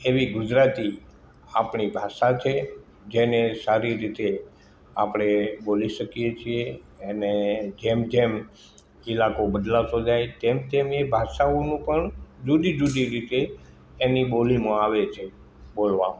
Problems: constant background noise